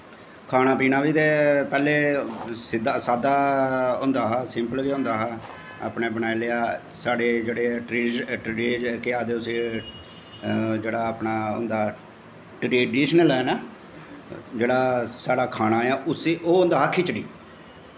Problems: constant background noise, echo